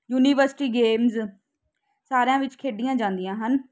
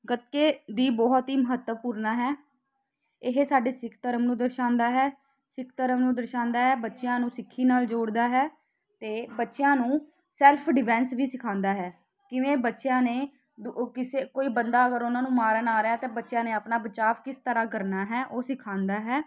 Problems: constant background noise